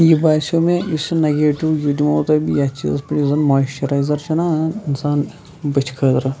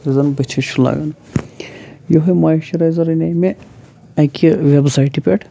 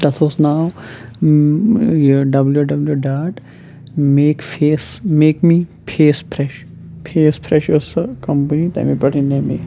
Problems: constant background noise